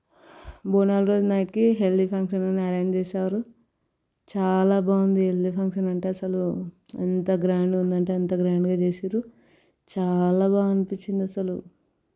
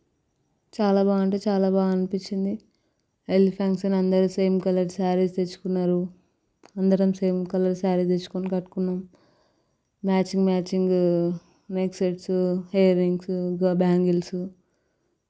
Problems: background sounds at intervals